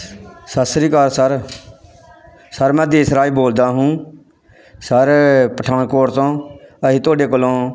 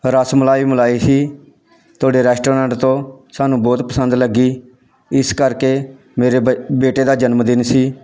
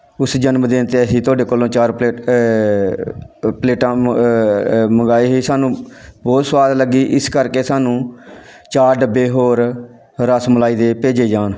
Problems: none marked